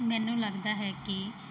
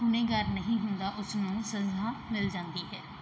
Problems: background sounds at intervals